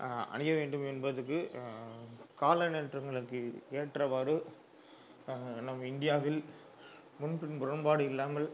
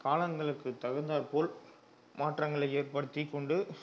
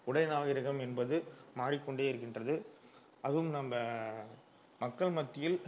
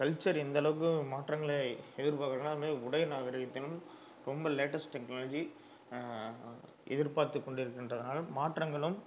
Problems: low volume